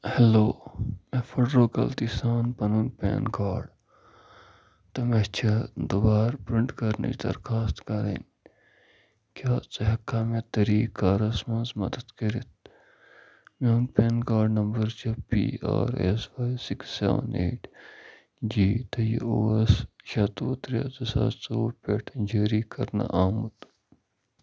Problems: none marked